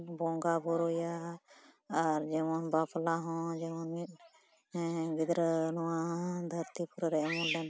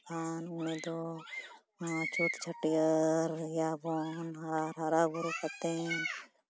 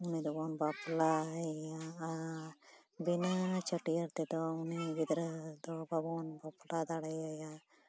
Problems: background sounds at intervals